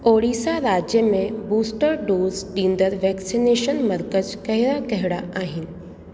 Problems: constant background noise, echo